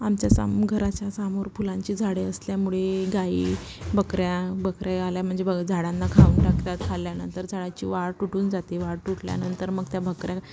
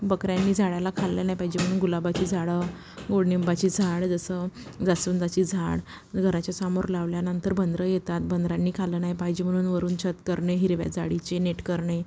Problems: constant background noise